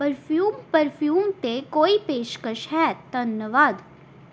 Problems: background sounds at intervals